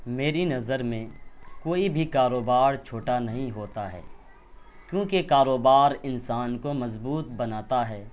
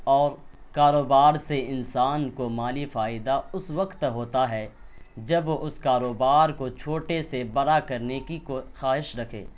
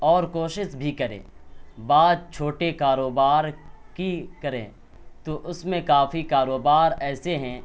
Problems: background sounds at intervals